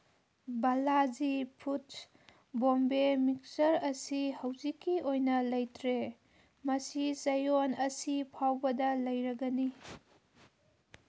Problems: background sounds at intervals